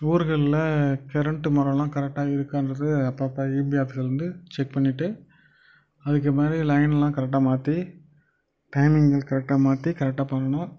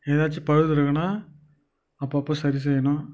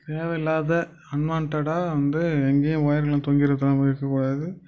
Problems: none marked